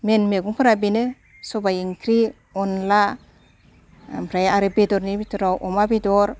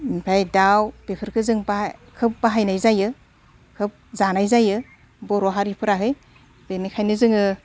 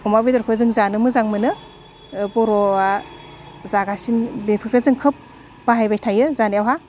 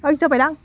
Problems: none marked